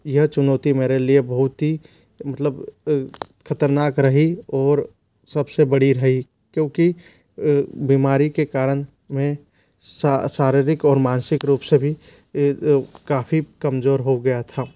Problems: low volume